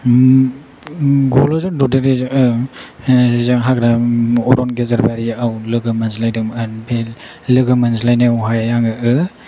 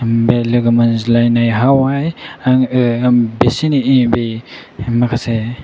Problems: background sounds at intervals